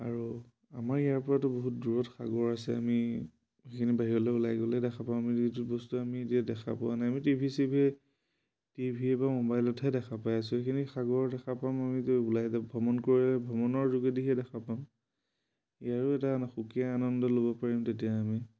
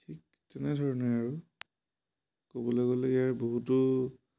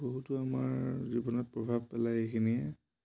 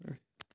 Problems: none marked